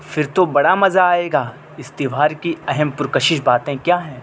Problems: constant background noise